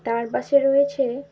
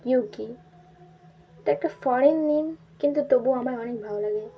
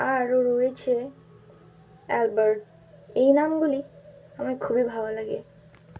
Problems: none marked